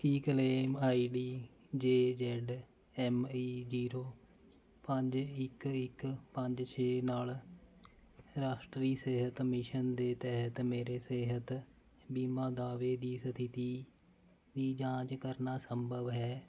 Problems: none marked